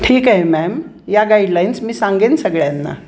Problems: constant background noise